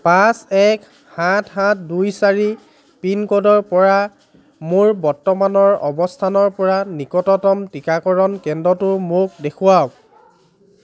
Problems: background conversations at intervals